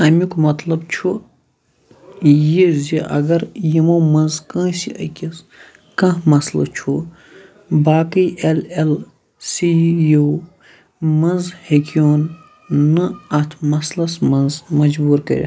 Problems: constant background noise